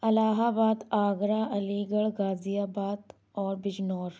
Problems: none marked